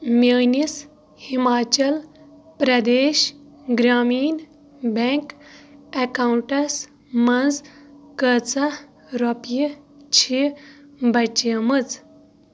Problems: background sounds at intervals, low volume